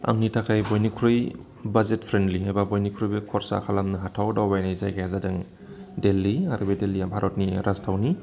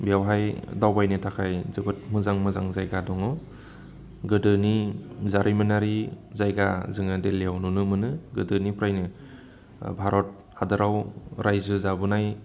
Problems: constant background noise